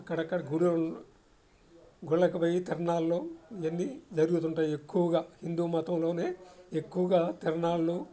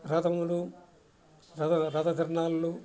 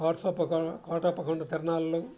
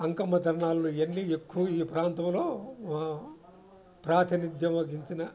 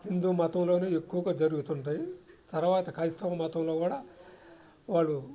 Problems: constant background noise